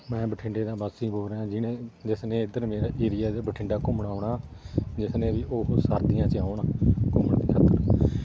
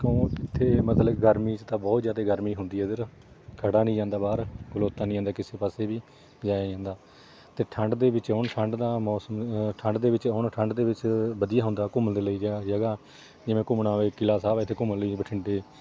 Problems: none marked